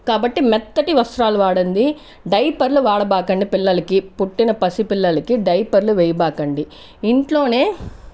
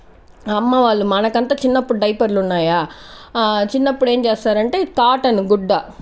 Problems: none marked